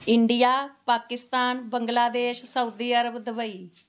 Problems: constant background noise